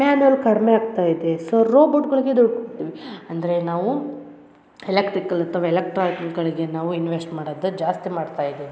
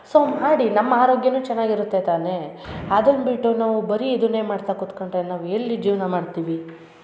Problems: none marked